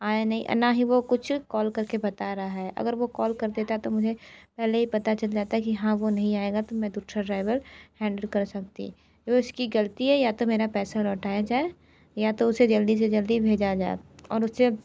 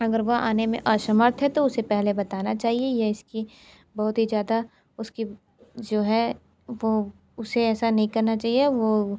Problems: background sounds at intervals, background conversations at intervals